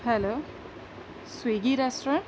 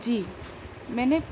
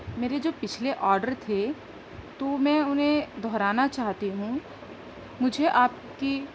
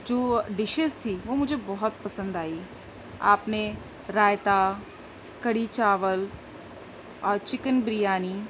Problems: constant background noise